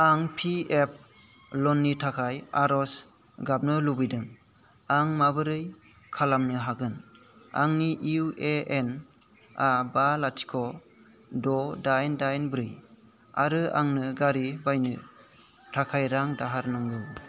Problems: constant background noise